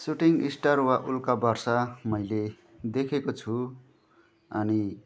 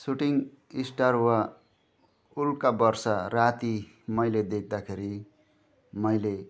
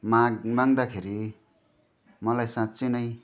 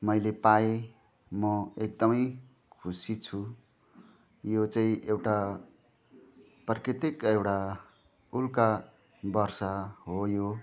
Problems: none marked